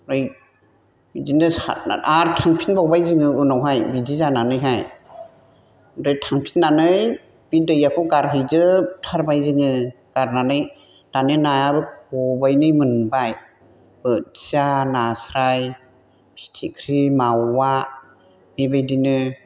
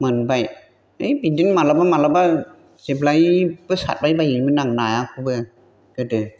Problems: none marked